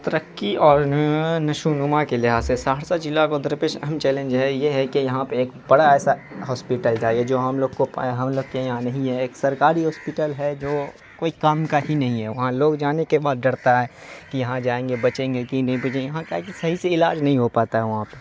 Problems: constant background noise